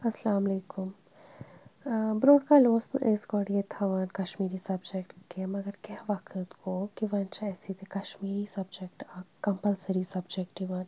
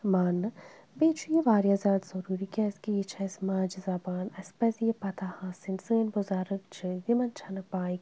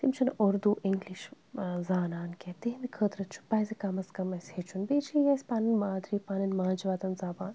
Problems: none marked